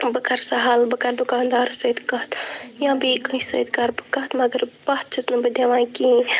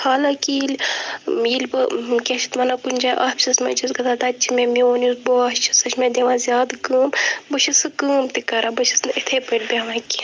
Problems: constant background noise, continuous background conversations